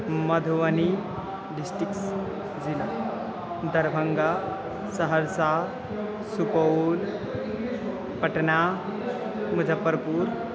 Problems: constant background noise, continuous background conversations